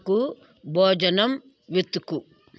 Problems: constant background noise